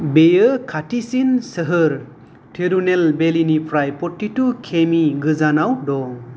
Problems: none marked